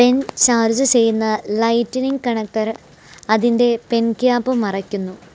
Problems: constant background noise